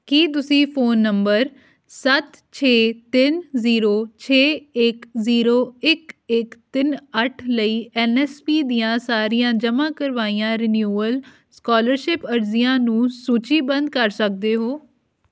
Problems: background sounds at intervals